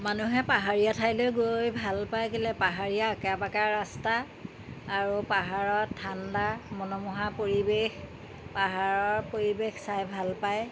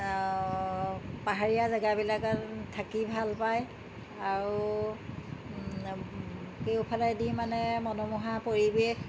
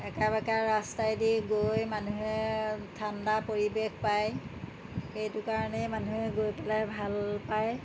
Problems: constant background noise